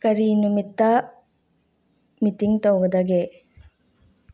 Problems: none marked